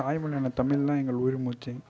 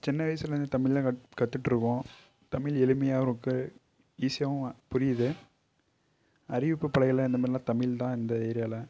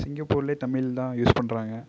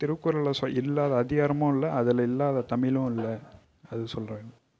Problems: low volume